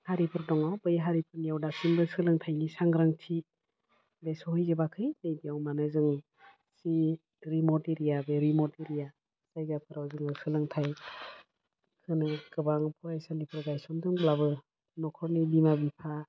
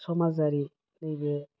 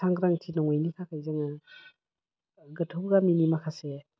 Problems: low volume